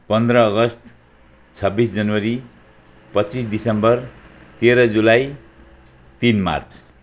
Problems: none marked